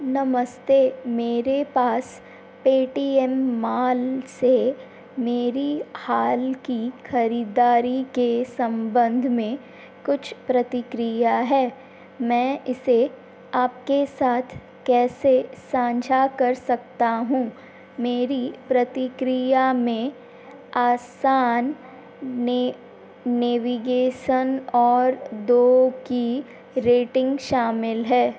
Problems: constant background noise, background conversations at intervals